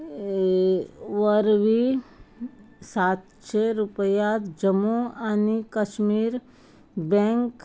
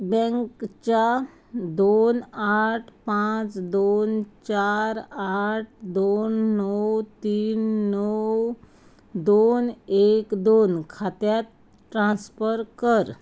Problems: background sounds at intervals